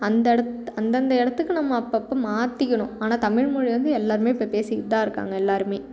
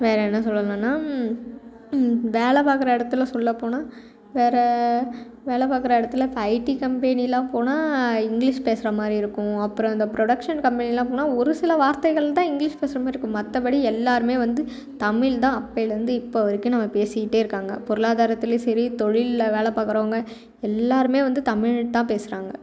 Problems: continuous background conversations